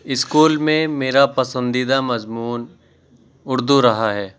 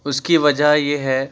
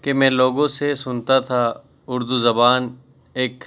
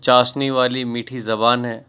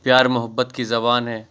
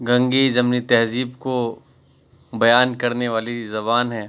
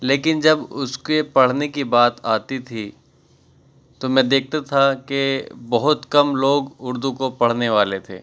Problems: none marked